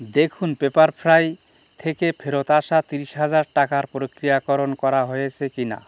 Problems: none marked